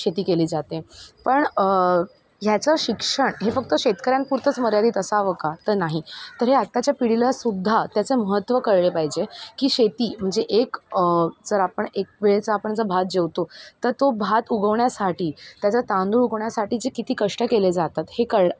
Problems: none marked